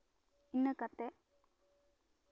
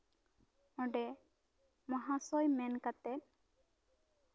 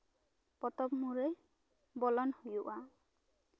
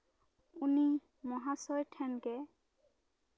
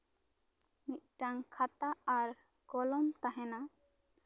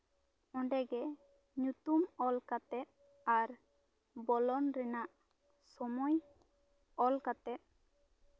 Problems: none marked